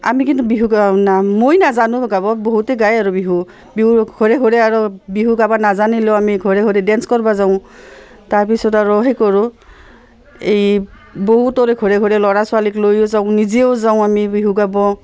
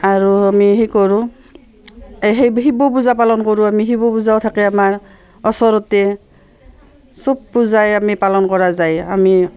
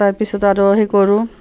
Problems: constant background noise, background conversations at intervals